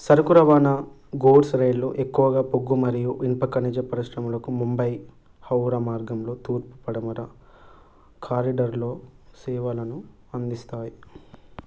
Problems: none marked